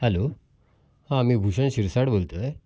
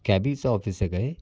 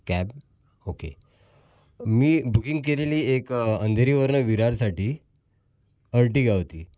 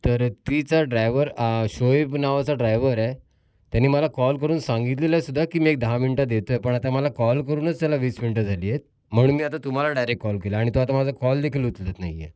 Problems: constant background noise, background conversations at intervals